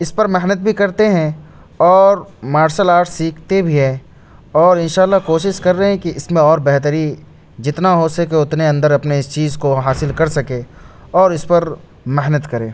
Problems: constant background noise